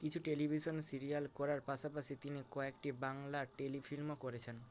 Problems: none marked